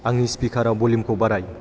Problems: constant background noise